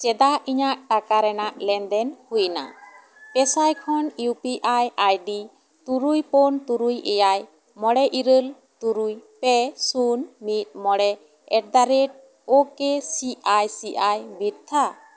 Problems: none marked